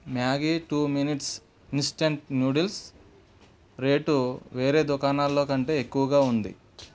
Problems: none marked